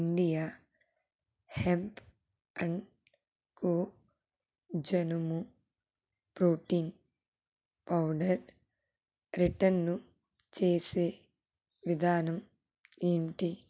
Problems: low volume